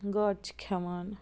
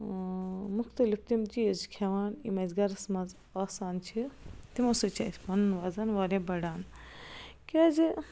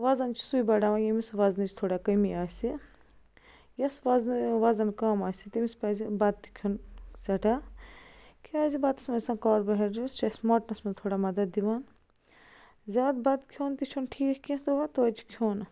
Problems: constant background noise